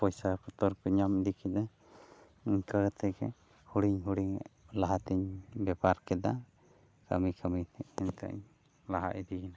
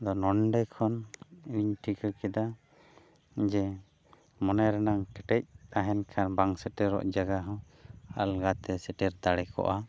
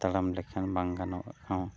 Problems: none marked